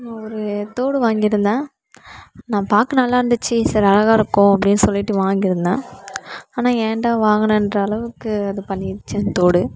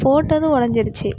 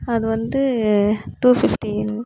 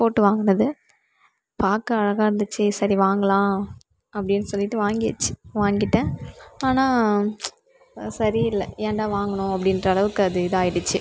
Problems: background sounds at intervals